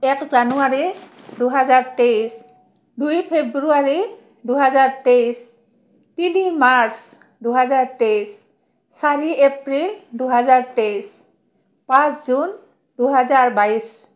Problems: none marked